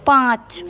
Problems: constant background noise, continuous background conversations